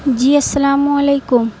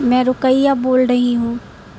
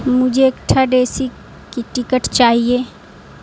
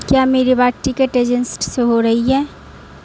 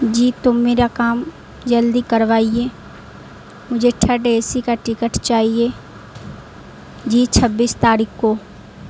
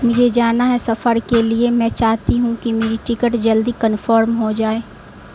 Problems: constant background noise